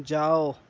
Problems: none marked